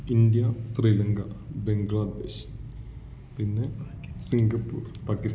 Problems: background sounds at intervals